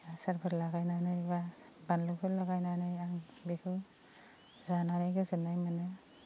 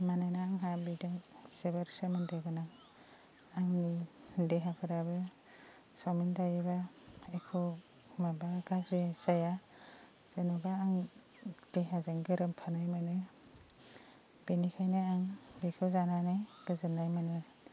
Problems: constant background noise